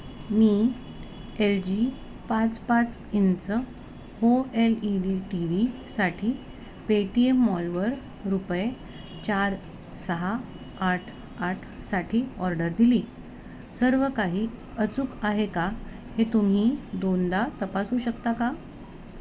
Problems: constant background noise